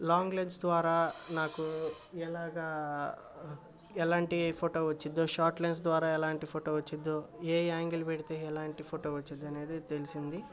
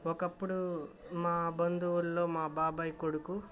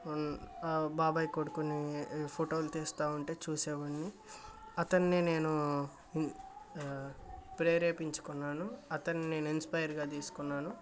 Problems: constant background noise